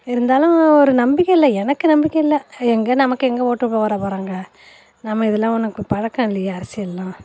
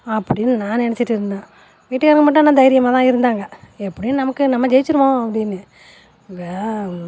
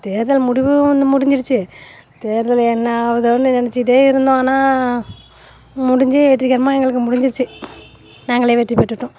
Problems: constant background noise